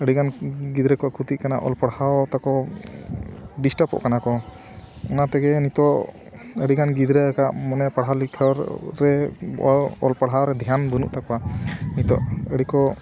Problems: none marked